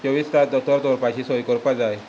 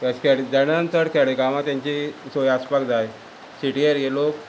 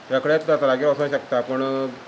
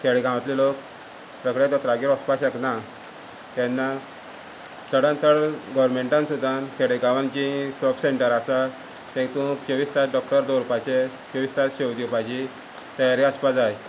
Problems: constant background noise